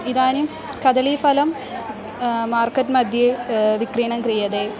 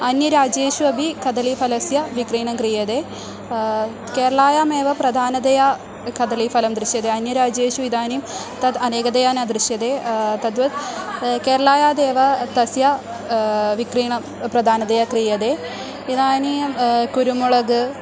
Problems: constant background noise